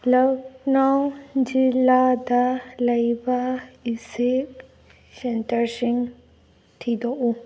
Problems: background sounds at intervals